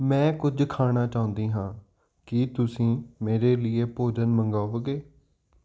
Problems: none marked